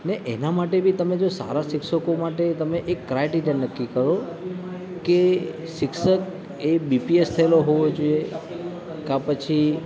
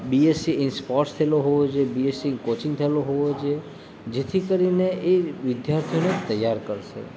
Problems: constant background noise